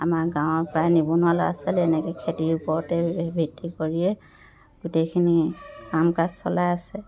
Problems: continuous background conversations